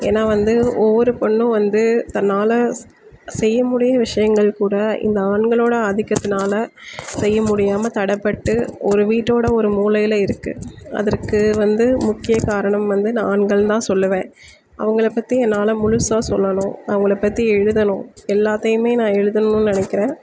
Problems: constant background noise